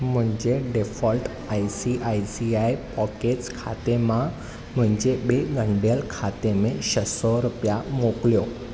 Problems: none marked